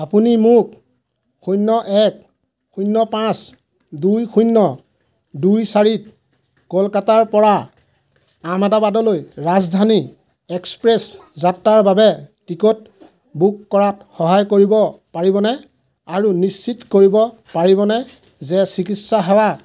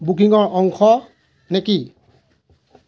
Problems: constant background noise, background conversations at intervals